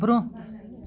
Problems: background sounds at intervals